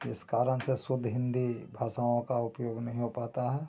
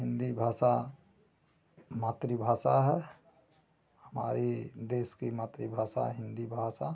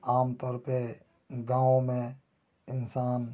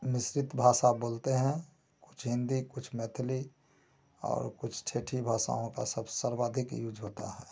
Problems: none marked